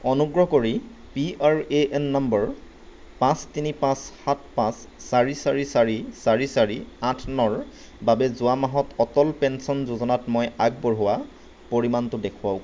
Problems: none marked